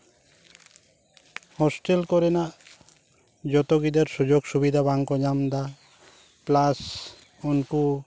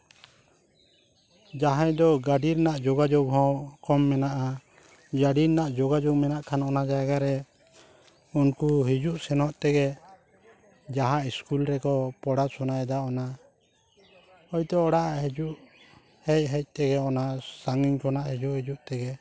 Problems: none marked